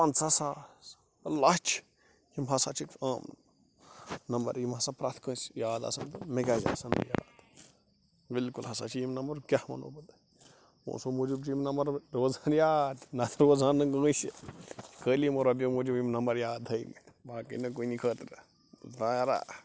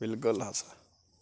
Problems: constant background noise